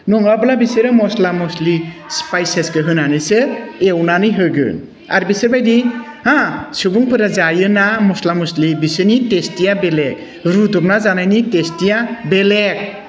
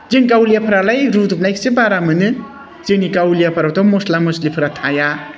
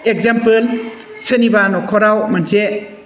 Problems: constant background noise